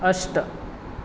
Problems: constant background noise